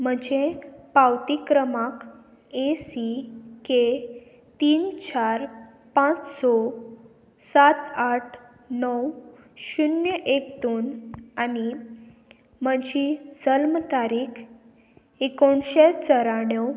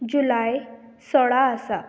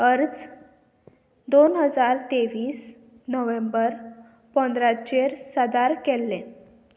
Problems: constant background noise